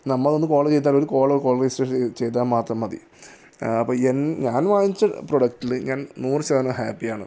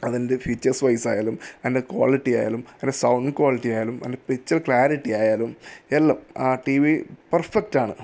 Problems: none marked